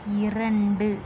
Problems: low volume